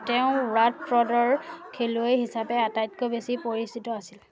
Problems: none marked